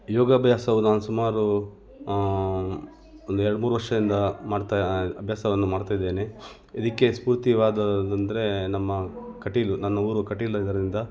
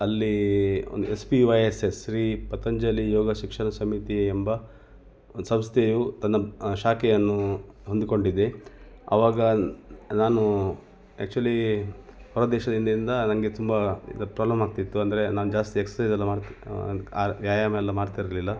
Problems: background sounds at intervals